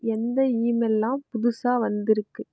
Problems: none marked